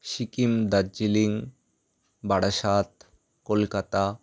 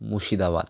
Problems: none marked